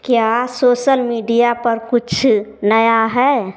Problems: background sounds at intervals